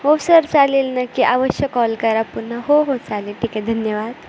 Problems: none marked